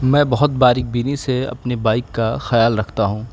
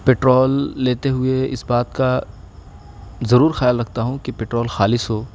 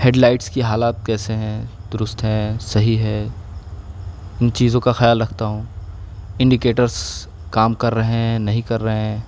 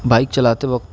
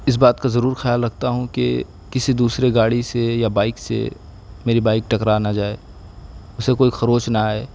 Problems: background sounds at intervals